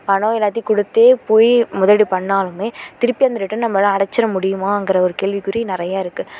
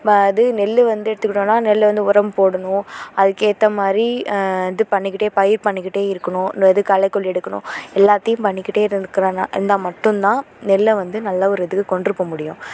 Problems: none marked